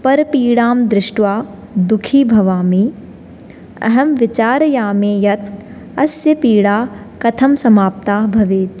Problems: none marked